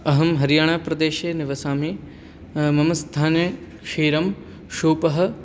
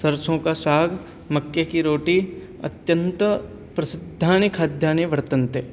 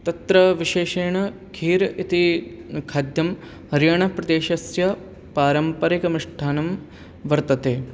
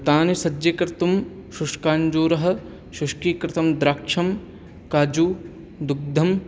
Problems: none marked